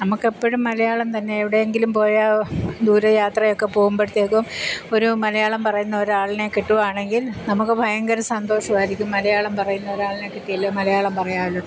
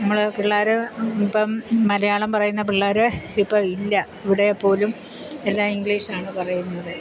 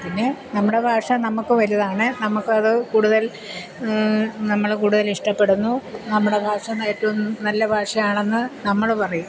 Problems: constant background noise